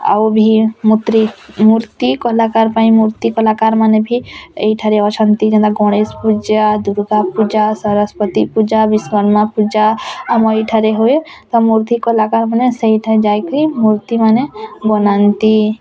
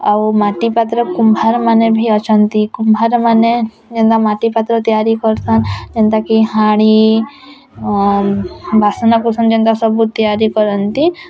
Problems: constant background noise, continuous background conversations